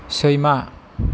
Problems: constant background noise